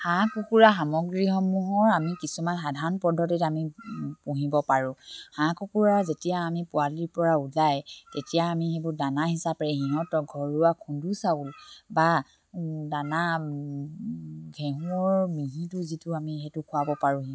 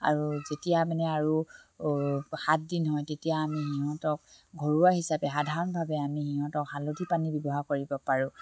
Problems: none marked